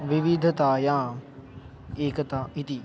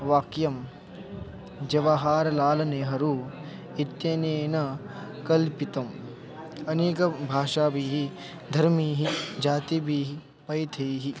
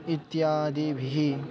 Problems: constant background noise, continuous background conversations